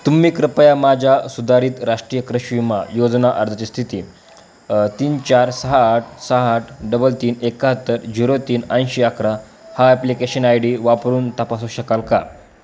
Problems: constant background noise